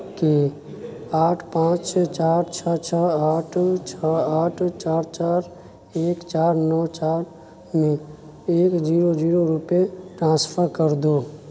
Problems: constant background noise